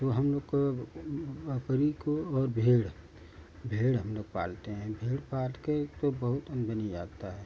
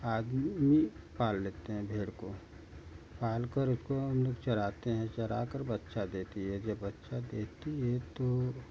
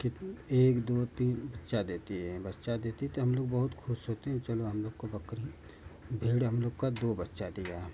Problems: none marked